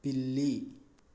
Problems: low volume